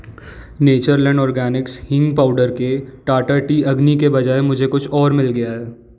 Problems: none marked